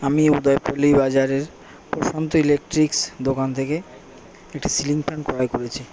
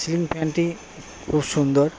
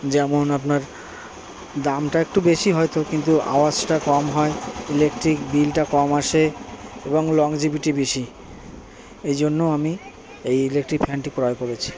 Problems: background sounds at intervals